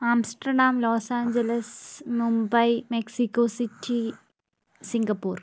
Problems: background sounds at intervals